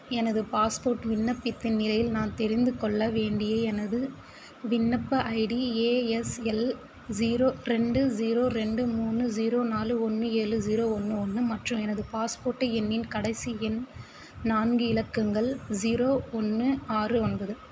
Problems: constant background noise